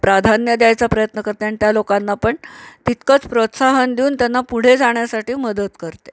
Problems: none marked